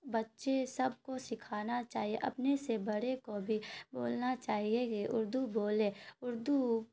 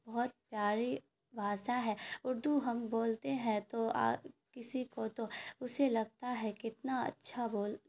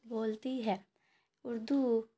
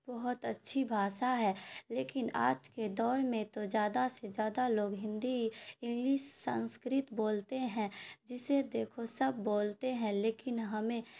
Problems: constant background noise